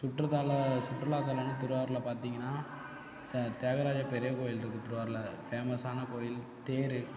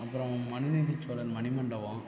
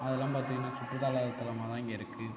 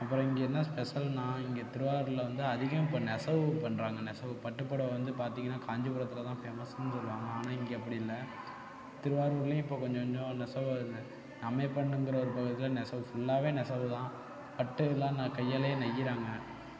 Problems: constant background noise, low volume